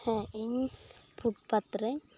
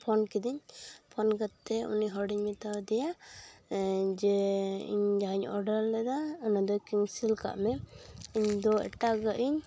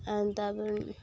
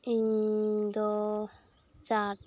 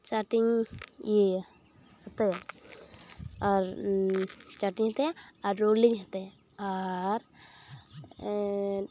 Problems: constant background noise, background conversations at intervals